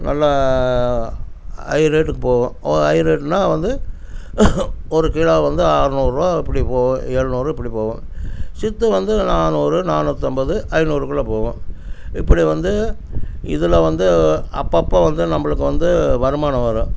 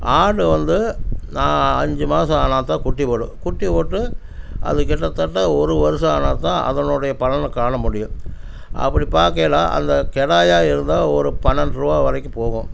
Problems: constant background noise